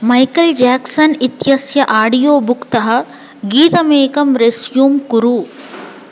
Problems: none marked